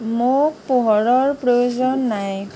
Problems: background sounds at intervals